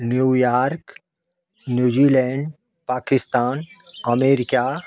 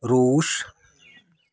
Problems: none marked